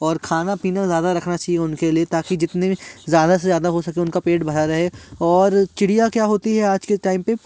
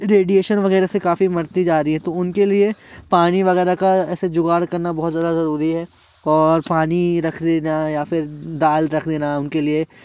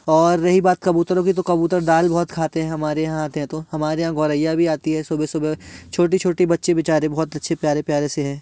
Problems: none marked